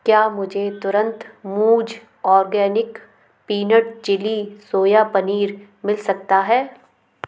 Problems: background sounds at intervals